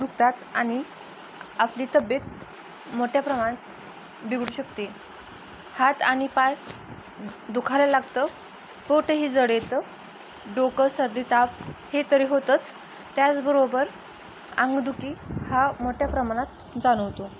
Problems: constant background noise